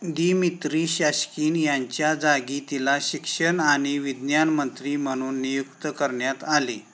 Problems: none marked